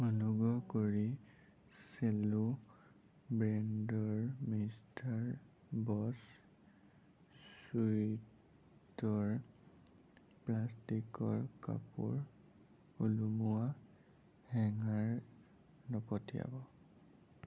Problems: low volume